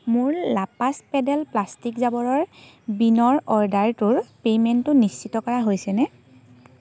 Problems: none marked